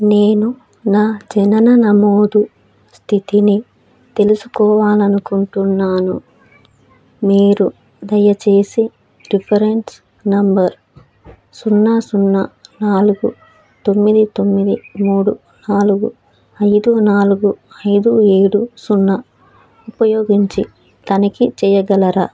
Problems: none marked